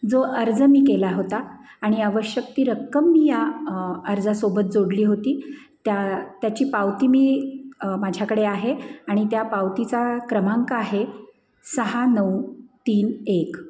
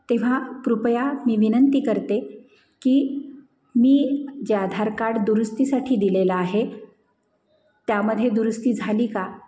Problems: none marked